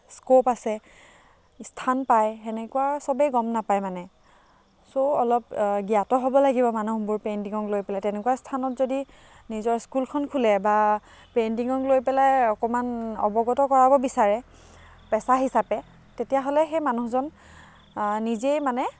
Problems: background sounds at intervals, background conversations at intervals